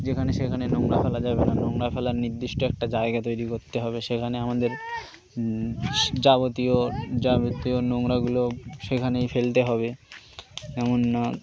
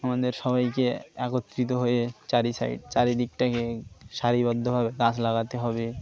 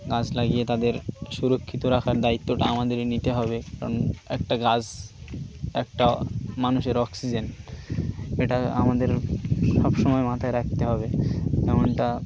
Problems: constant background noise, continuous background conversations